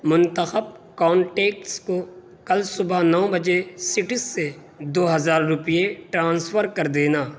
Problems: constant background noise